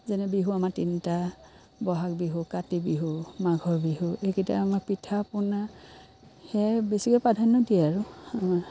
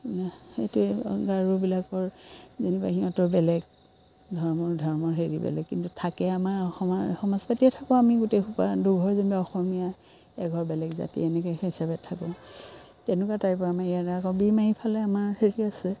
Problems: constant background noise